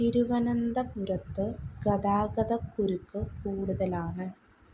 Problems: constant background noise, low volume